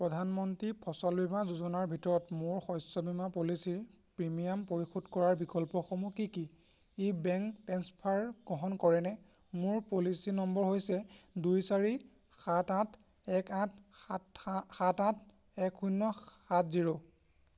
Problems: constant background noise